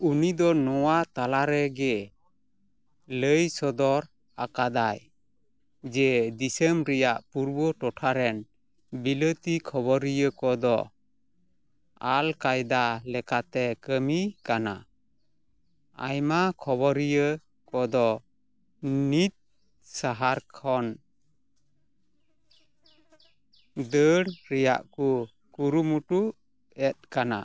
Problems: none marked